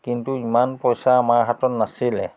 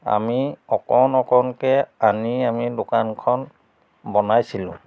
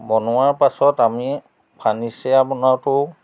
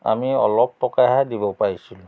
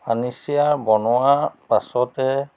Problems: background sounds at intervals